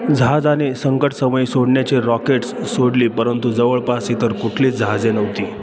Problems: constant background noise, continuous background conversations